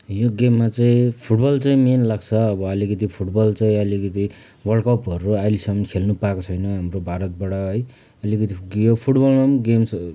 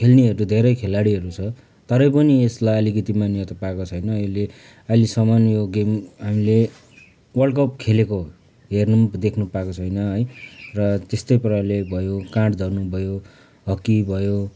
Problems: background conversations at intervals